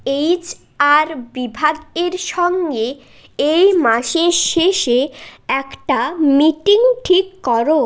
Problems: none marked